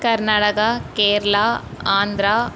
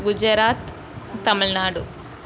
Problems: constant background noise